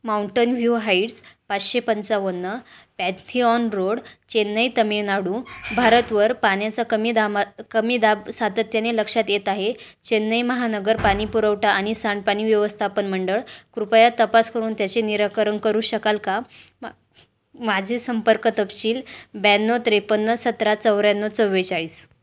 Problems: none marked